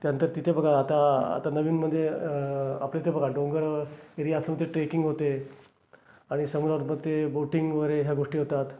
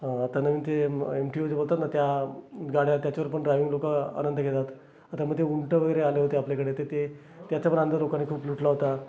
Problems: constant background noise, continuous background conversations